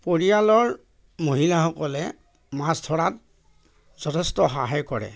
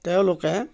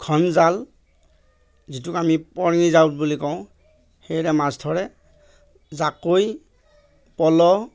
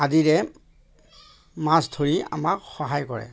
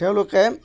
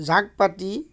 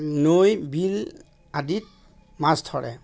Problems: constant background noise, background conversations at intervals